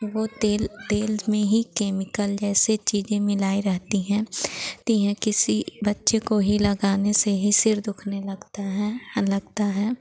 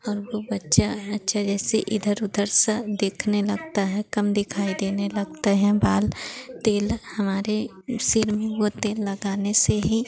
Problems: none marked